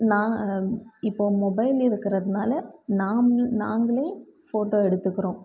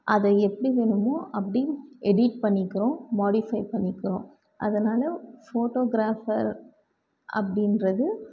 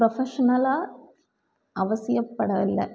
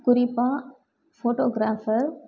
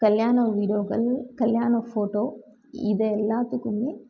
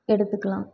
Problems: none marked